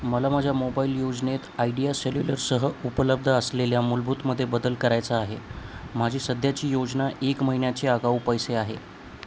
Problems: constant background noise